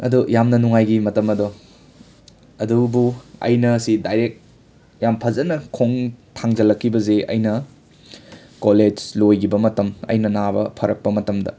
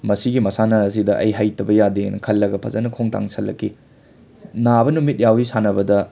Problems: background sounds at intervals, continuous background conversations